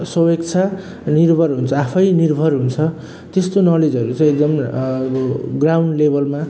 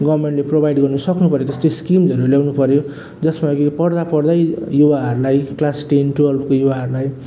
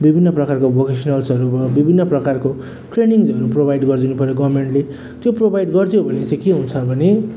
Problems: background sounds at intervals